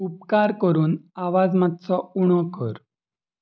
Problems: constant background noise